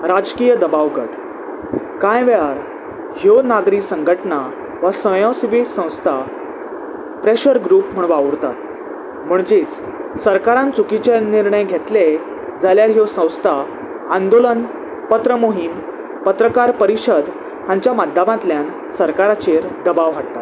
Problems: constant background noise